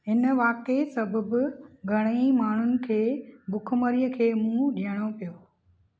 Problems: none marked